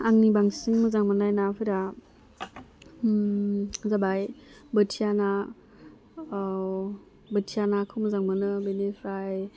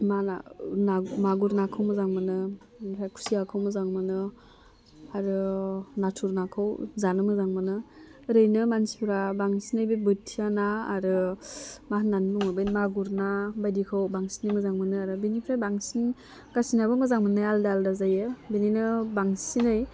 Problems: constant background noise